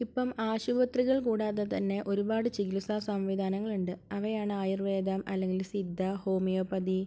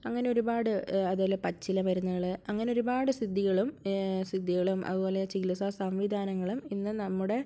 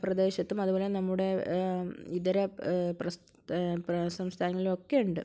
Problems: none marked